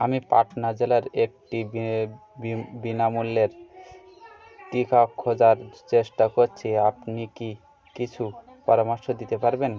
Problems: continuous background conversations